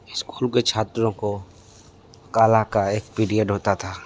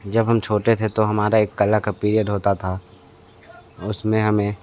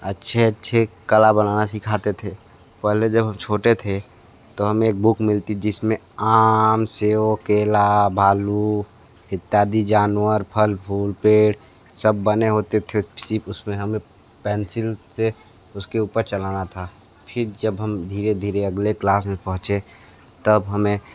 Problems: constant background noise, background conversations at intervals, echo